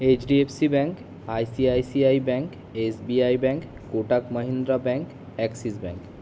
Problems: constant background noise